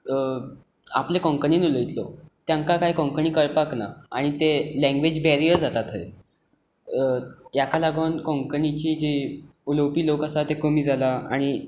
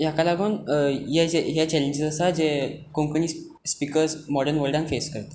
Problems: background sounds at intervals